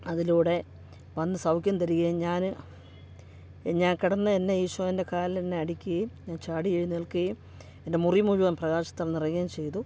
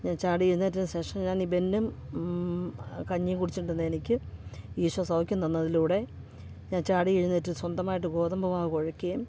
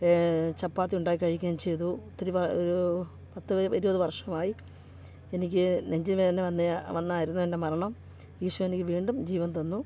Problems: background sounds at intervals